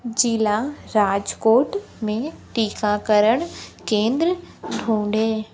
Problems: constant background noise